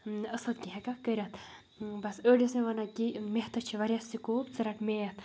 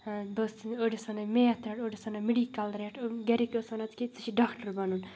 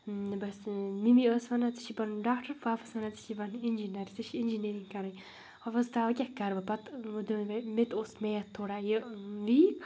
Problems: constant background noise